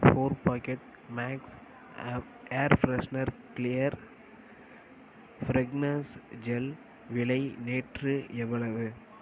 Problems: constant background noise